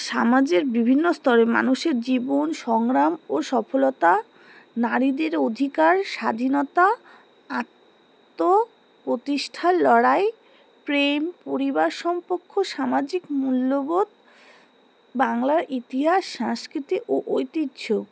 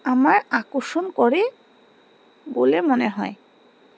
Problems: none marked